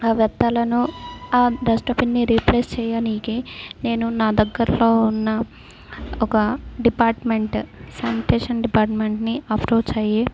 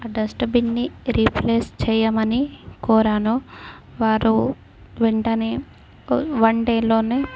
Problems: background sounds at intervals